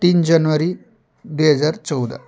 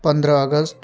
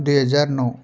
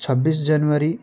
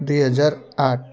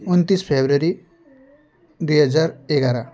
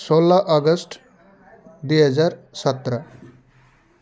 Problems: constant background noise